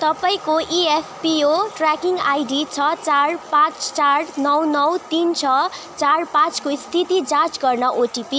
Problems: constant background noise, continuous background conversations